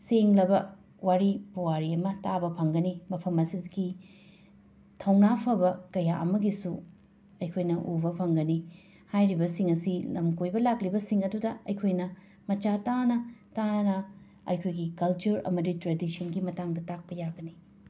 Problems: background sounds at intervals